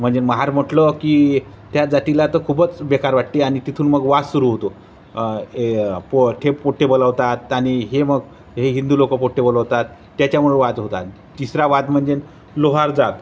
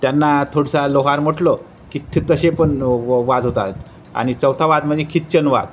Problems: constant background noise